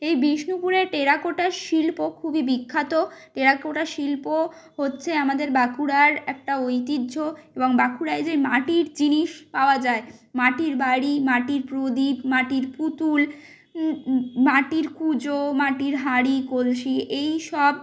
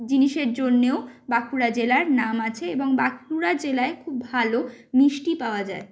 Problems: constant background noise